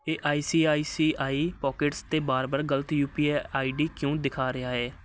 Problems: none marked